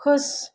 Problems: low volume